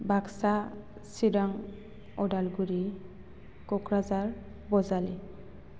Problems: none marked